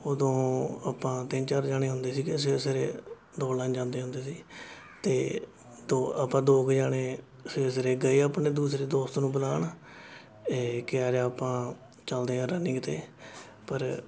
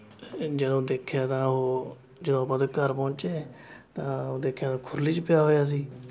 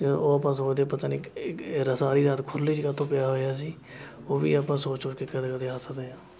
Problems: constant background noise, continuous background conversations